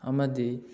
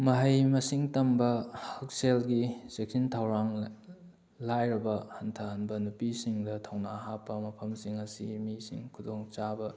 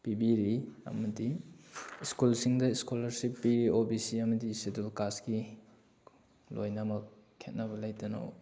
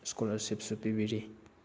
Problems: none marked